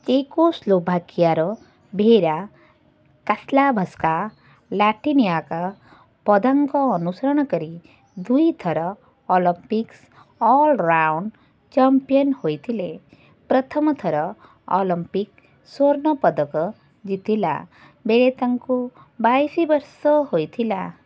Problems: none marked